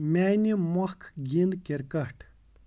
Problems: background sounds at intervals